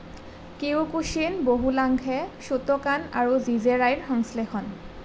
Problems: none marked